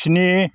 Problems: none marked